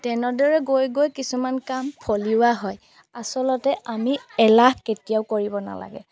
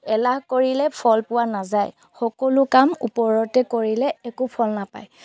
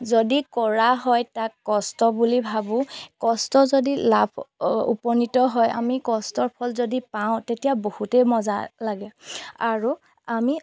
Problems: none marked